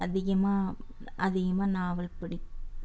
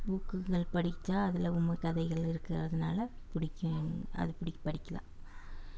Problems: background sounds at intervals